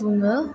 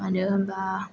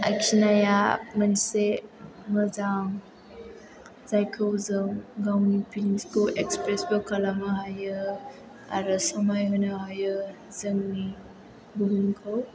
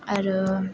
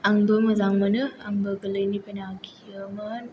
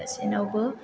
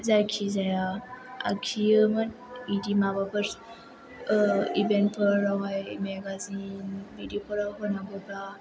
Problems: low volume